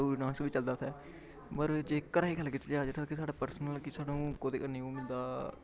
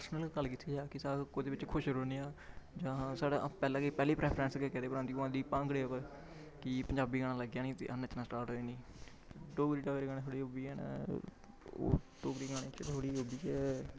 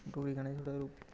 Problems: background sounds at intervals, low volume